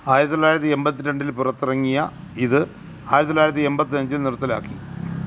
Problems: background sounds at intervals